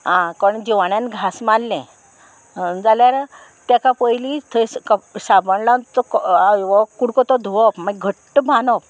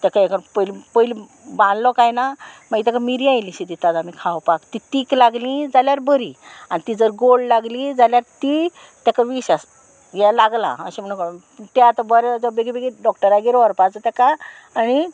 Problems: constant background noise